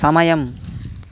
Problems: constant background noise